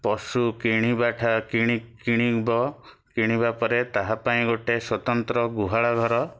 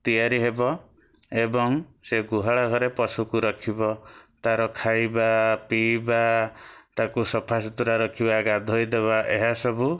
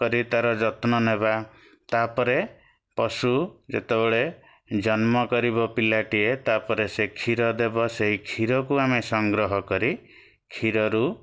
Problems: none marked